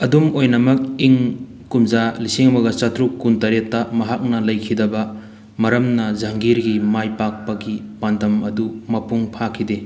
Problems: background sounds at intervals